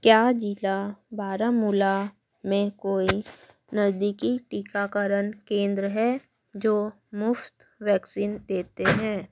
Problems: background sounds at intervals